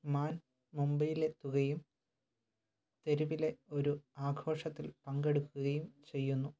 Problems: low volume